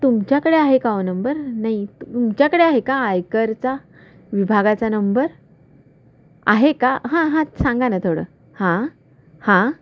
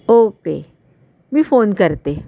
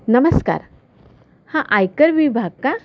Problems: constant background noise, background conversations at intervals